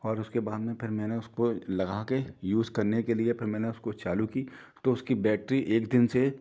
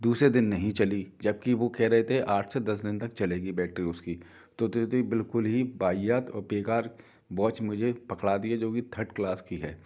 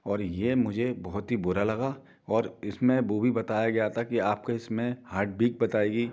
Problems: none marked